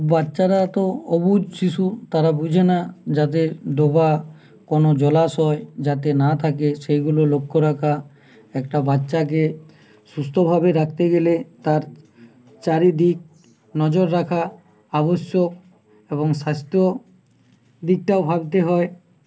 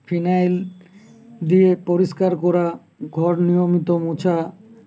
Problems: constant background noise